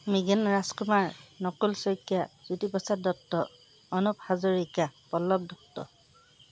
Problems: none marked